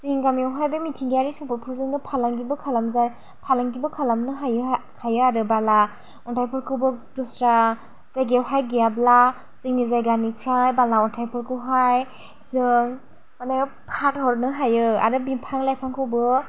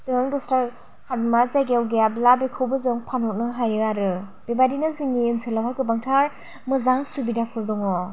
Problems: low volume